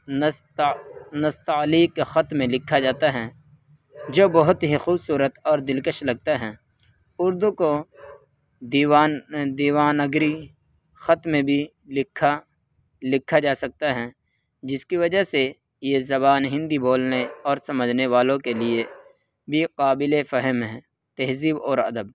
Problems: constant background noise